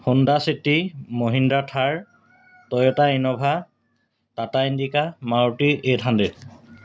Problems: constant background noise